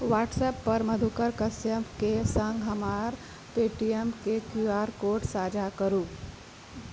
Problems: constant background noise